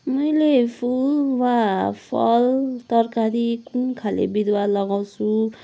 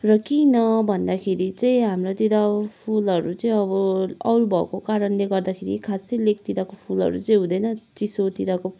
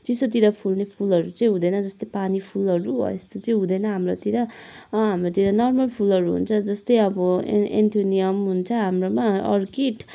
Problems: none marked